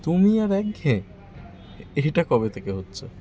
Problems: constant background noise, continuous background conversations